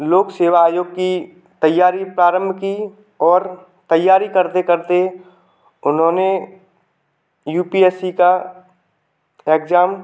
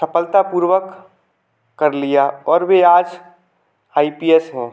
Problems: none marked